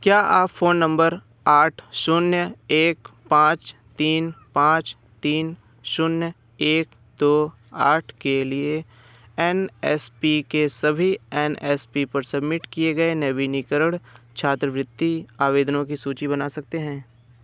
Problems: background sounds at intervals